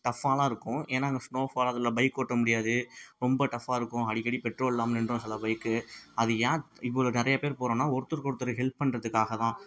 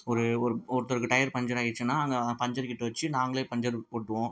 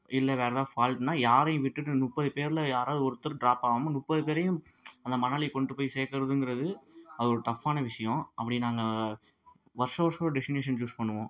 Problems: low volume